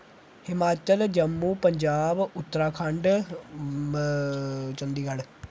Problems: background sounds at intervals